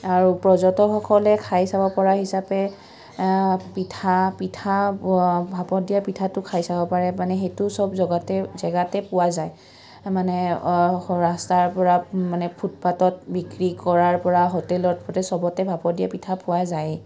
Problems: background sounds at intervals